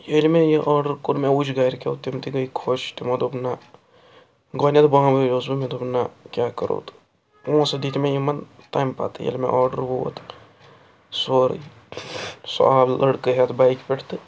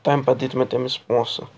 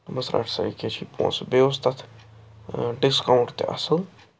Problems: background sounds at intervals